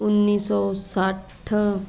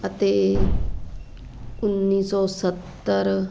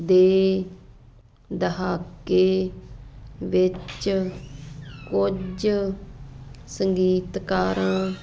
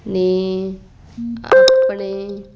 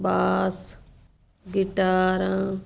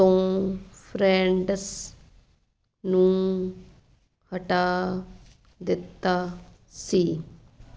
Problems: constant background noise